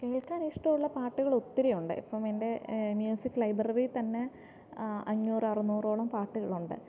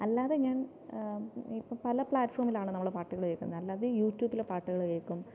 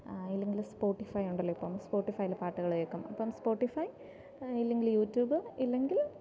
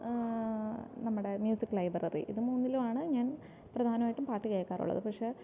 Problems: low volume